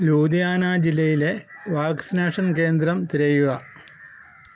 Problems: none marked